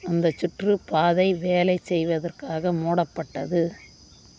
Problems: constant background noise